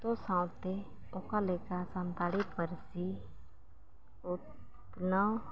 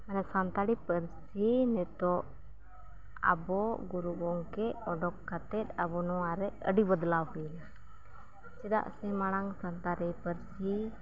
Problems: none marked